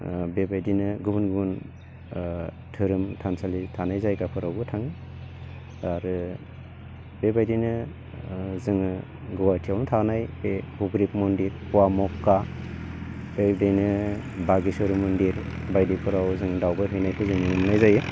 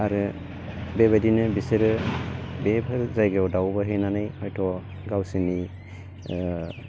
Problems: constant background noise